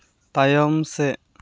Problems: none marked